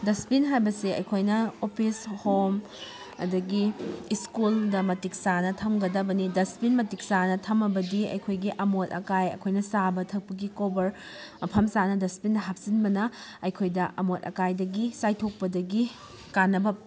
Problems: background conversations at intervals